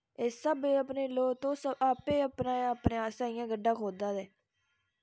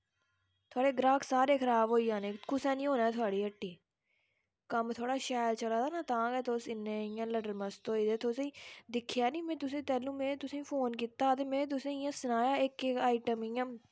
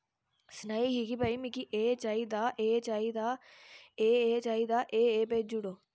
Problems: background sounds at intervals